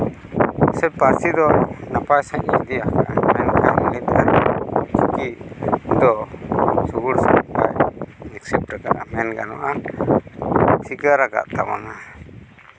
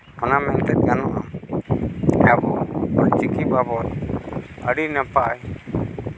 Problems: background sounds at intervals